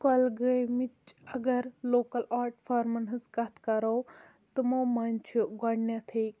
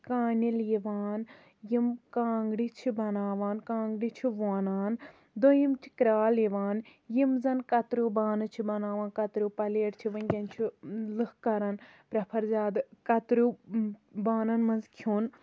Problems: none marked